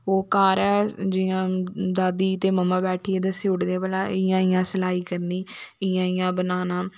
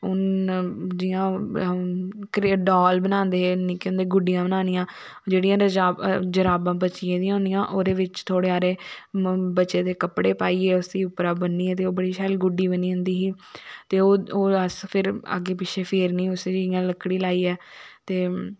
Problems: none marked